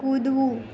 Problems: constant background noise